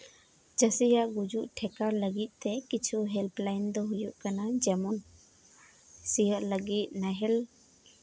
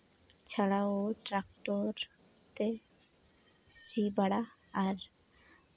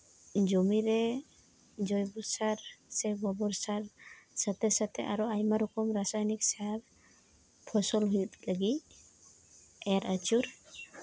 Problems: constant background noise